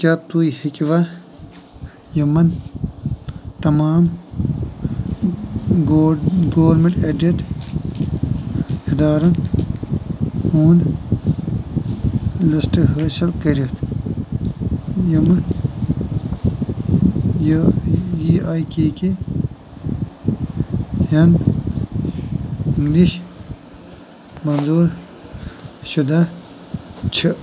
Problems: constant background noise